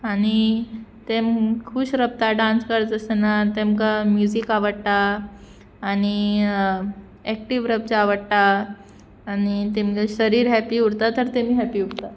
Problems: constant background noise